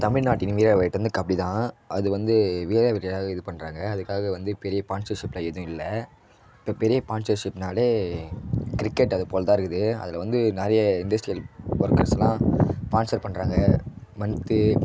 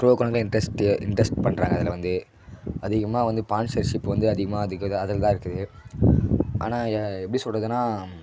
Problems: background sounds at intervals